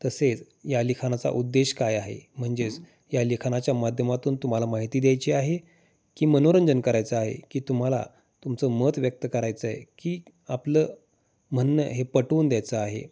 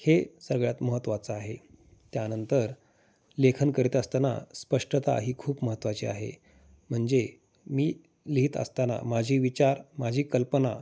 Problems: none marked